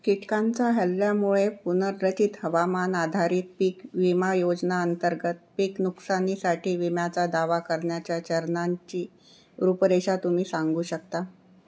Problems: none marked